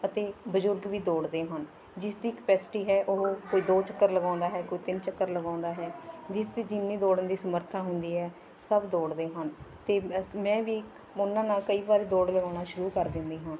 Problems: continuous background conversations